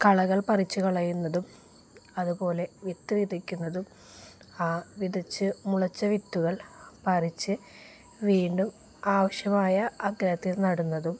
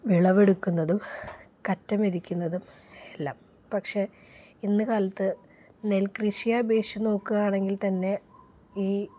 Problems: none marked